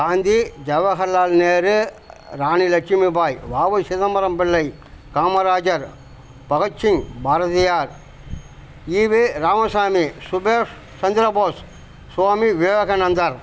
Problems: constant background noise